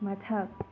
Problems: constant background noise